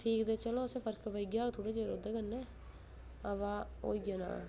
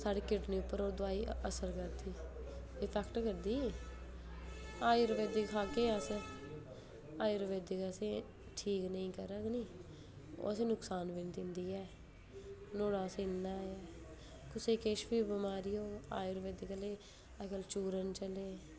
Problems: low volume